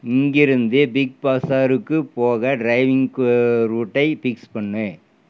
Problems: none marked